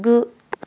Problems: none marked